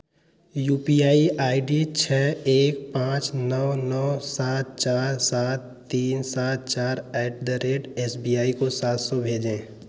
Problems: none marked